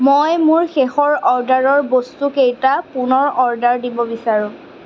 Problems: constant background noise